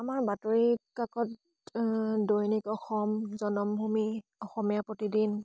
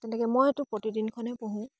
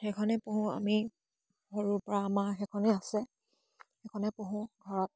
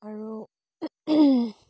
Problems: none marked